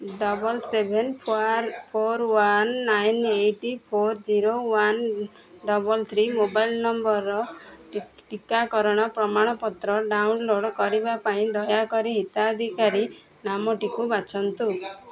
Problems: constant background noise, continuous background conversations